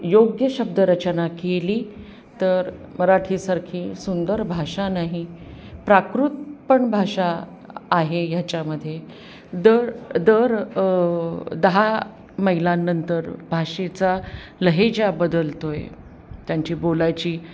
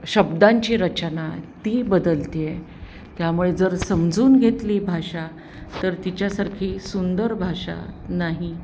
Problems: none marked